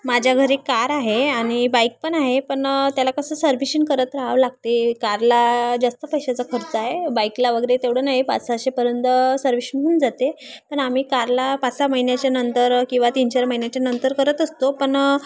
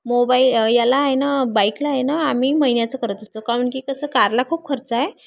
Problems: constant background noise, continuous background conversations